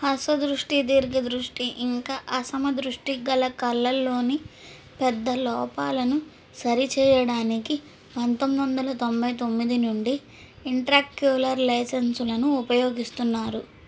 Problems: none marked